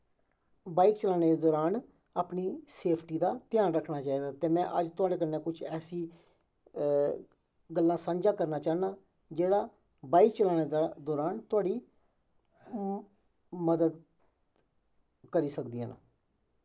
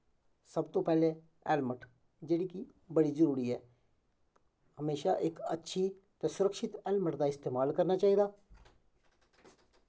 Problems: background sounds at intervals, echo